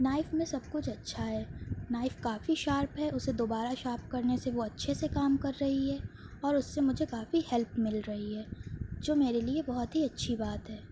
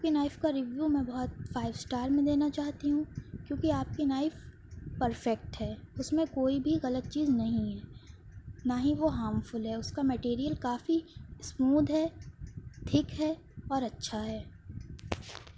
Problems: none marked